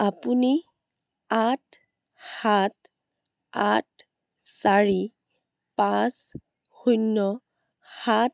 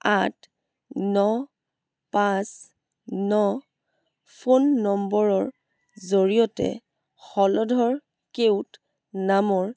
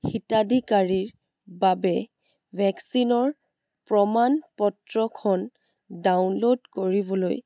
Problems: background sounds at intervals